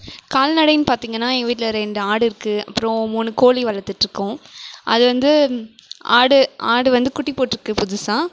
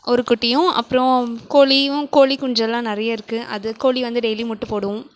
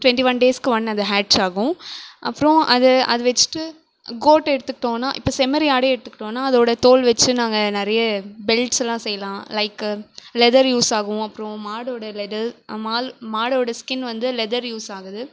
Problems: background sounds at intervals